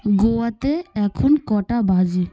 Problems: background conversations at intervals